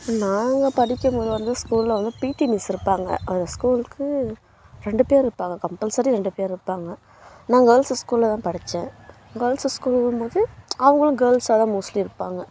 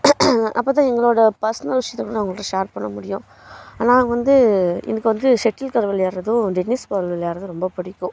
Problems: constant background noise